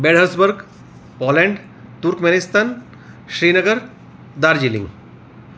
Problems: none marked